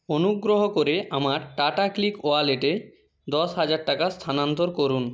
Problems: none marked